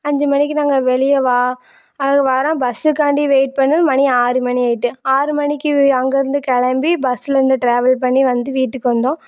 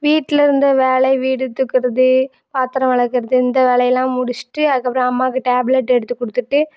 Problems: none marked